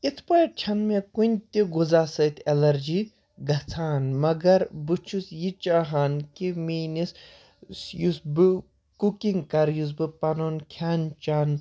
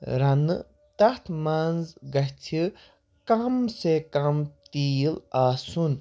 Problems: none marked